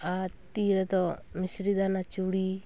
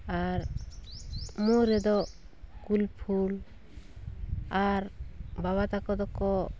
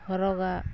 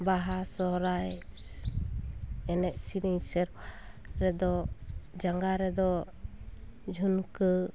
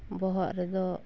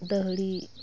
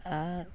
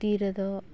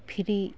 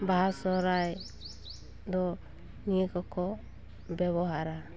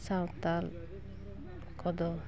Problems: continuous background conversations